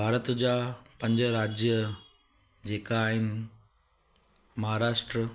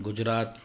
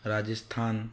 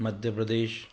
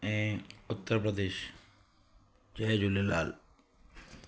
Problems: constant background noise